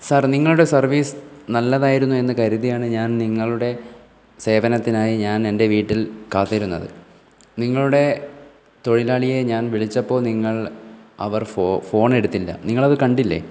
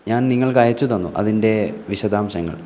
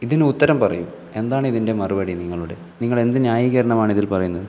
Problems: none marked